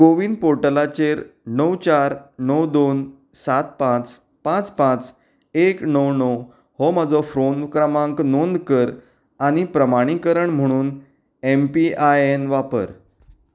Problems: none marked